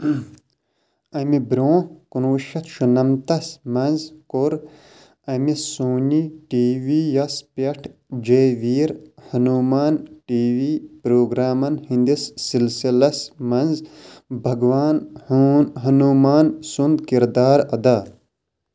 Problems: none marked